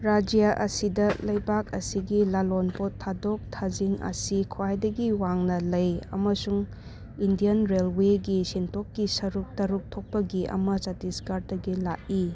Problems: none marked